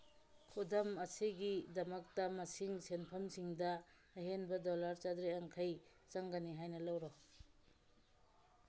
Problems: background sounds at intervals